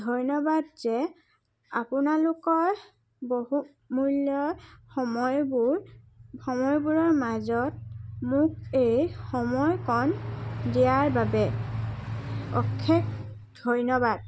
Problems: background sounds at intervals, background conversations at intervals